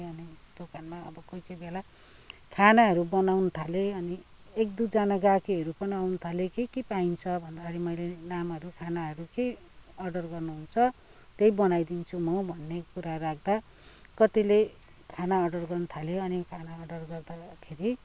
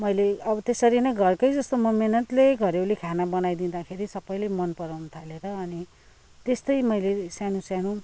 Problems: background sounds at intervals